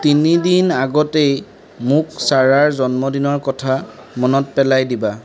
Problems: continuous background conversations